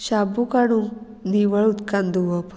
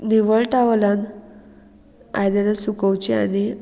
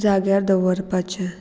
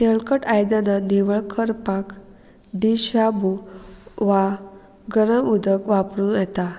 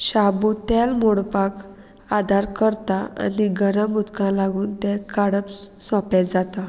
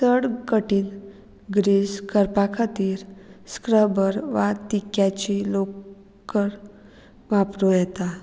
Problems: none marked